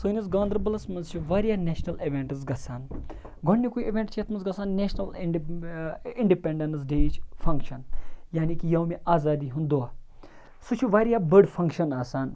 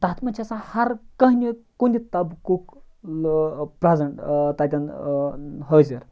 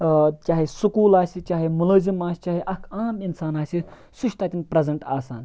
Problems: background sounds at intervals